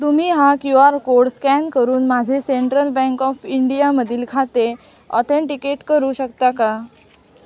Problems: none marked